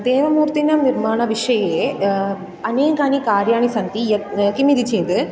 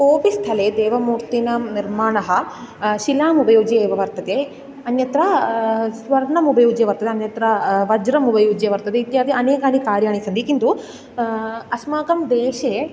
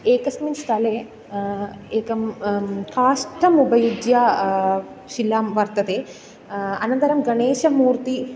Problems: background sounds at intervals